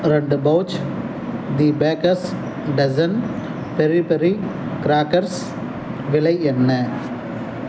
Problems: background sounds at intervals